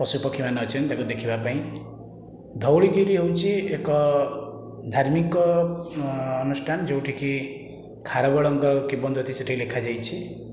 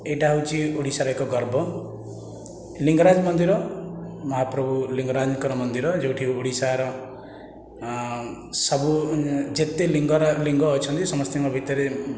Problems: constant background noise